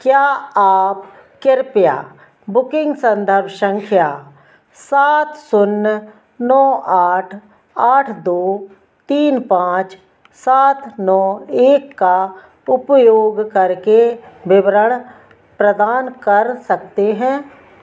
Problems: none marked